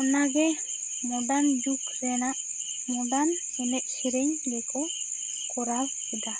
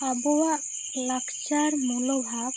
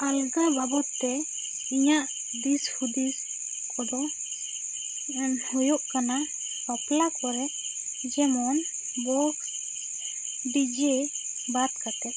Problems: constant background noise